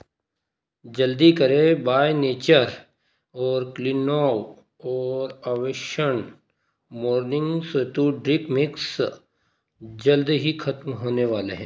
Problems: constant background noise